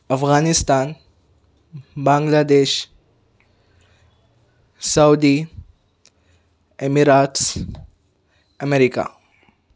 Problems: none marked